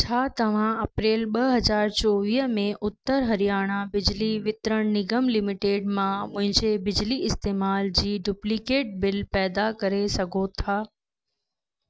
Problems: none marked